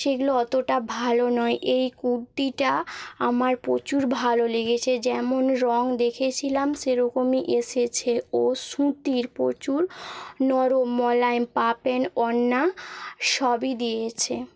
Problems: background sounds at intervals